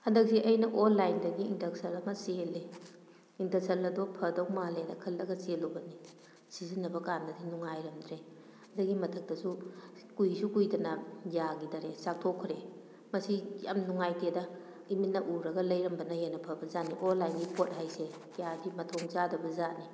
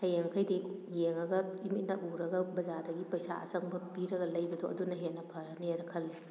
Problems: background sounds at intervals